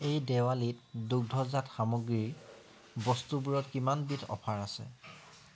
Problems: background sounds at intervals